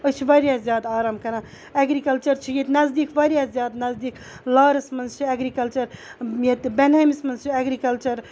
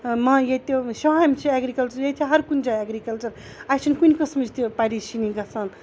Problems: none marked